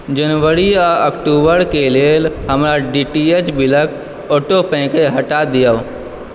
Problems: background sounds at intervals